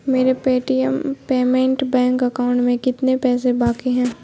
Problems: constant background noise